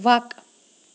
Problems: background sounds at intervals